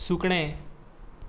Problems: background sounds at intervals